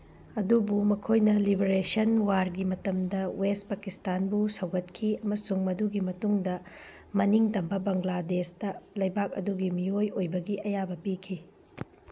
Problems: background sounds at intervals